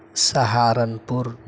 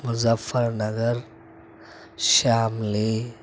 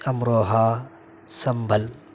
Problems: constant background noise